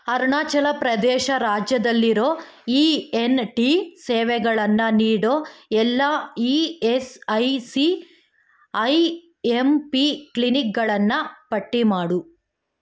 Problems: none marked